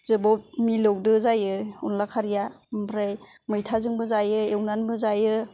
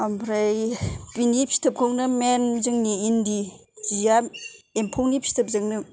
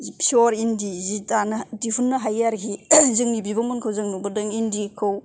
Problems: none marked